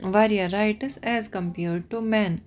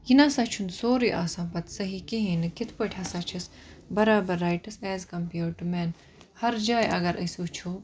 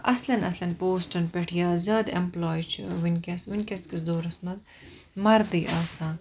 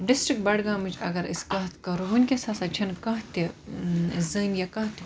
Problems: none marked